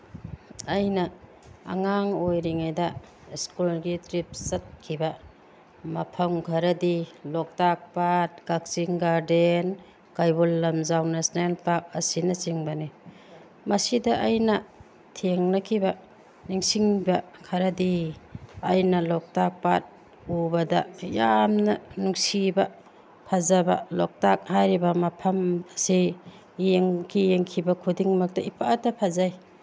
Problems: background sounds at intervals